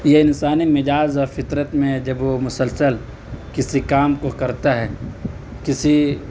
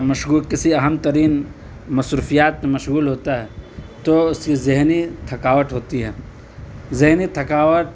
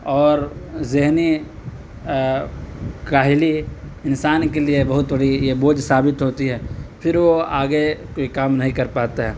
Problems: constant background noise